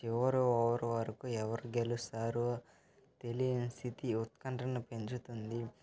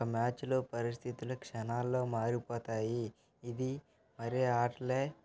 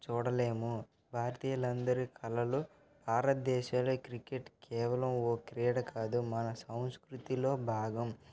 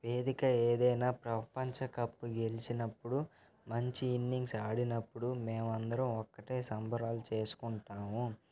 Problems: constant background noise, continuous background conversations